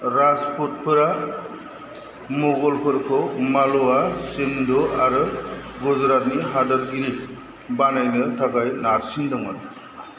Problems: constant background noise